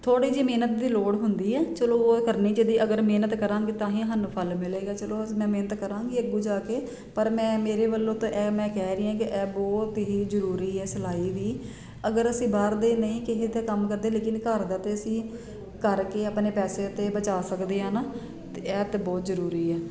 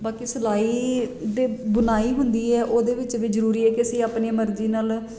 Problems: none marked